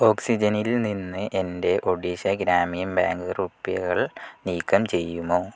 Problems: low volume